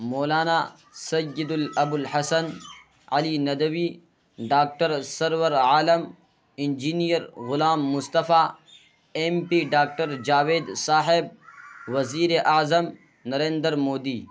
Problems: constant background noise